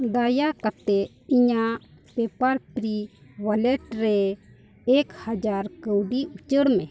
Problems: constant background noise